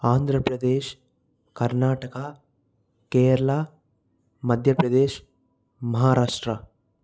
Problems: none marked